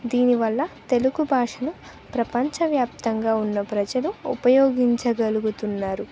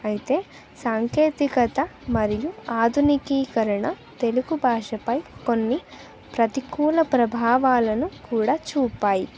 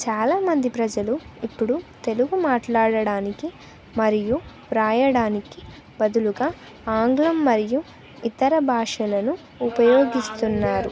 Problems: none marked